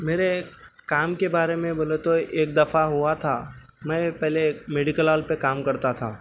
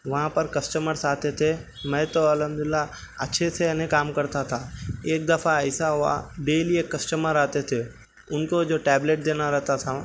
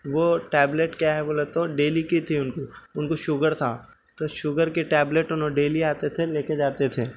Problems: background sounds at intervals